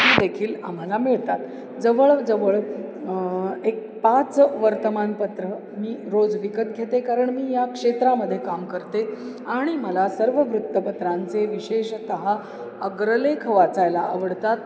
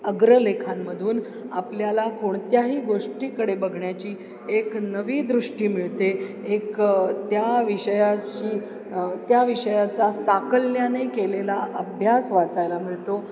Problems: constant background noise, continuous background conversations